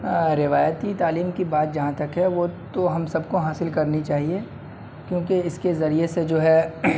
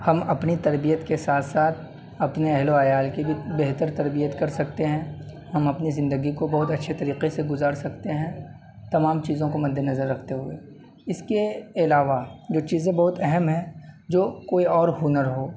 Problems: constant background noise